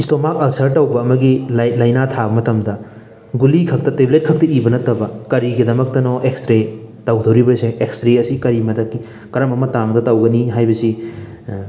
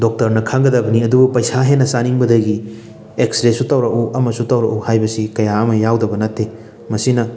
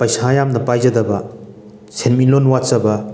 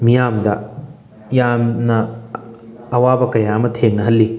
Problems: background sounds at intervals